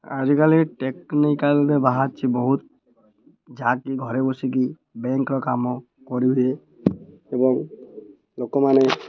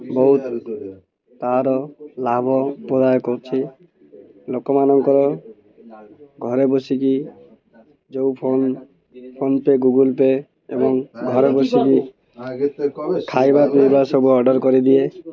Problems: constant background noise